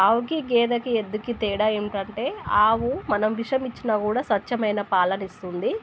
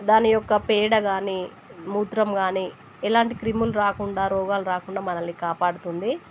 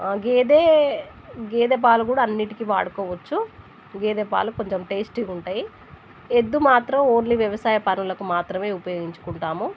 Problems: none marked